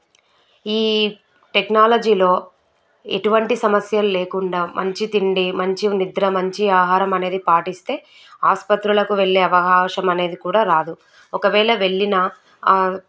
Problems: none marked